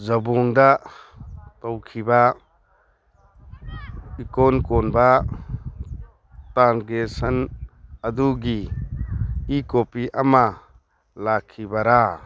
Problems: background sounds at intervals